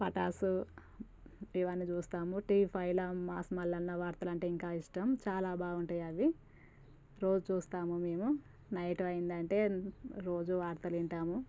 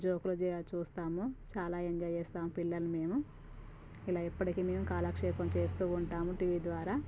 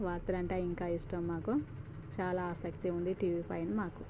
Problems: low volume